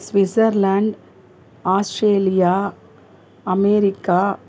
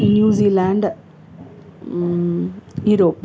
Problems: background sounds at intervals